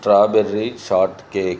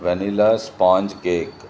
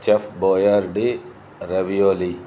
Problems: none marked